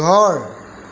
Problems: constant background noise